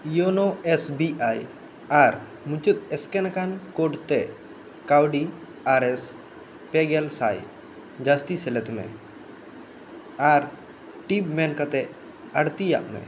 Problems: constant background noise